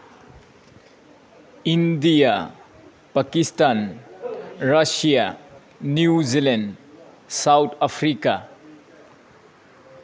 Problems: background sounds at intervals